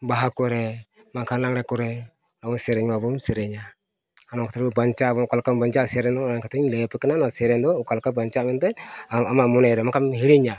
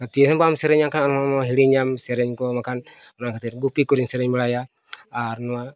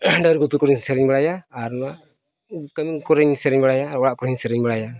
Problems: background sounds at intervals